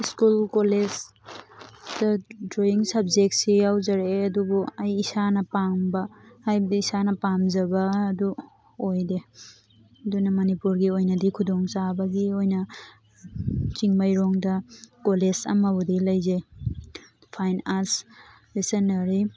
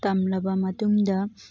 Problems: background sounds at intervals, background conversations at intervals